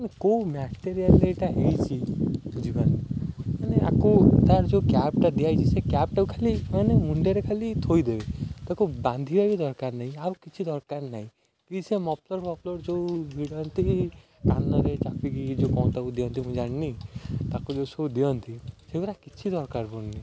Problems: none marked